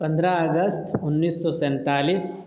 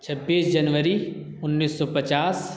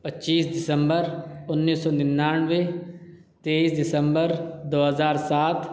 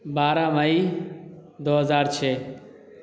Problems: none marked